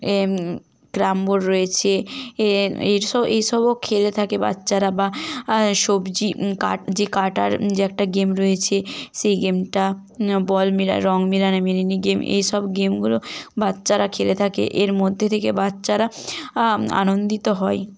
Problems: constant background noise